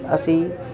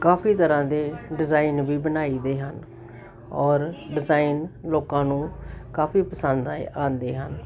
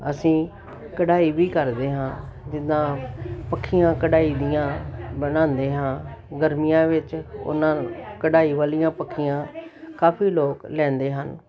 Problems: none marked